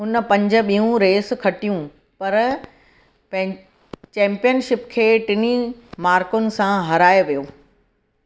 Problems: none marked